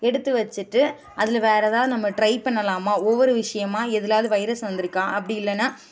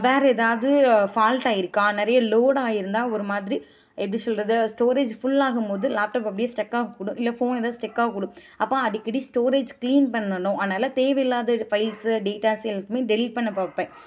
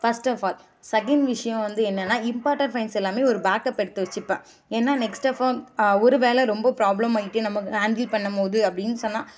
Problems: background sounds at intervals